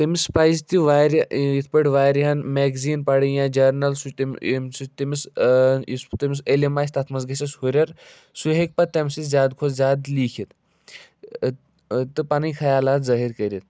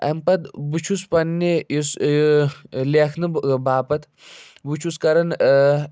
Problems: none marked